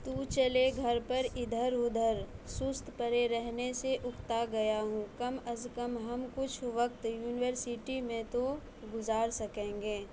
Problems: background sounds at intervals, low volume